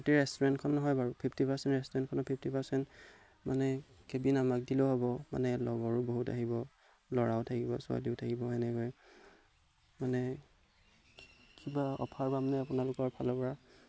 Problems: background sounds at intervals